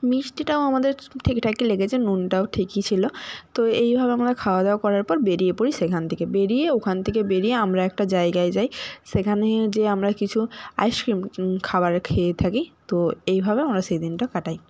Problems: background sounds at intervals